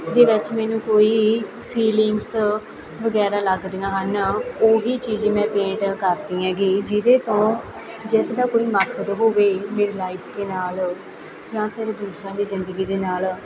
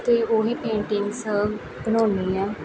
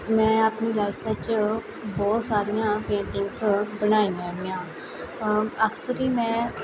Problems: constant background noise, continuous background conversations